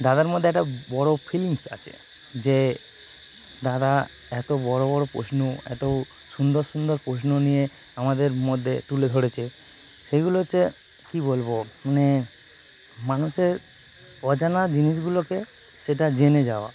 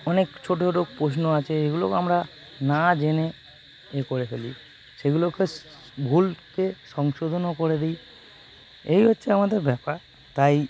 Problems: constant background noise